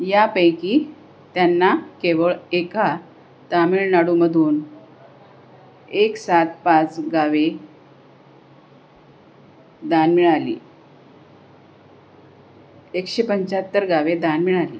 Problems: constant background noise